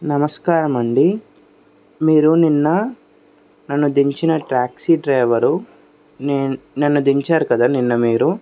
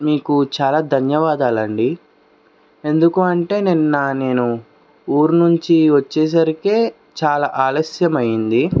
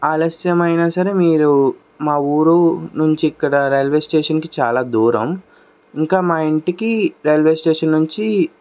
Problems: background sounds at intervals